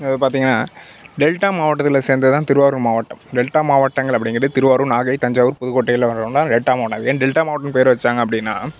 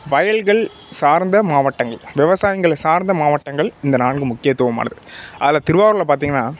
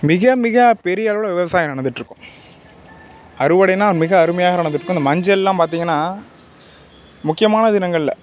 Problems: background sounds at intervals